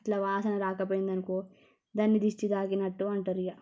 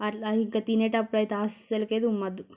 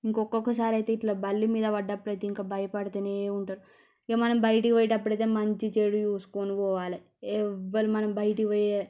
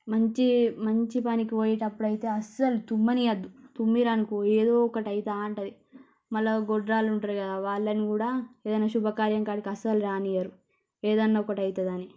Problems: low volume